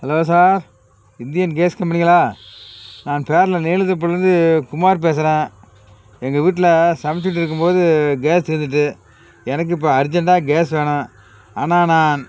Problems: constant background noise